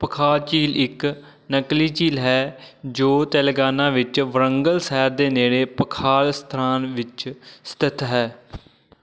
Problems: none marked